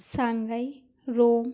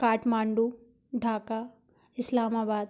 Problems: background sounds at intervals